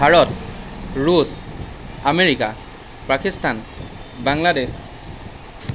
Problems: constant background noise